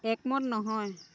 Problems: constant background noise